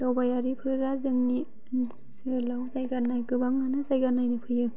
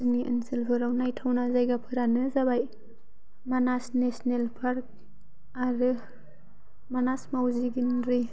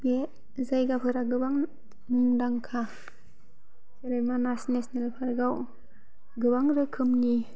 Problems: low volume